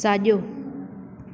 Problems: constant background noise, echo